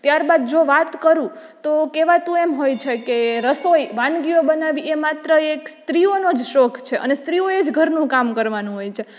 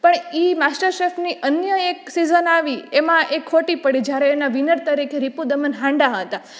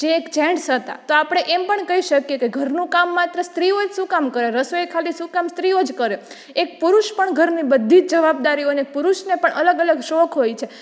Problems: none marked